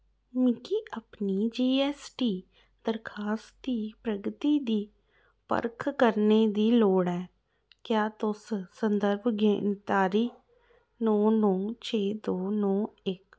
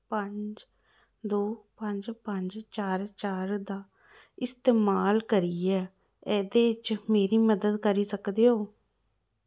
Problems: low volume